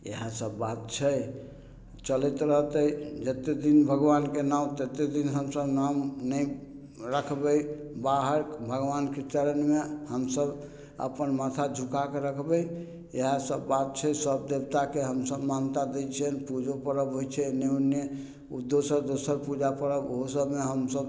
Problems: none marked